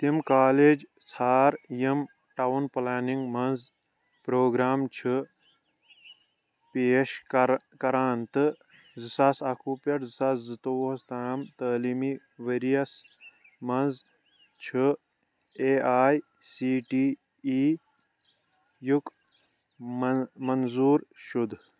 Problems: none marked